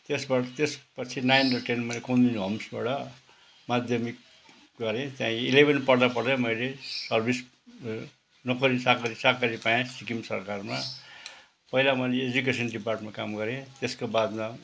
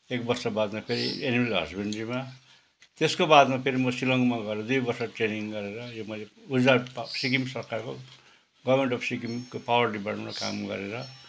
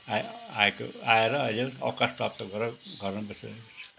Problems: none marked